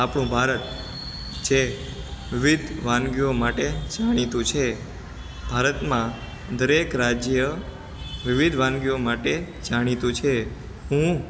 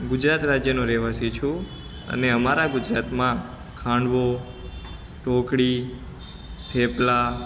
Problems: constant background noise